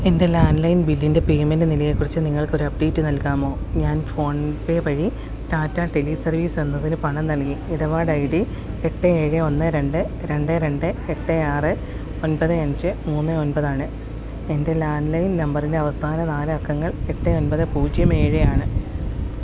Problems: constant background noise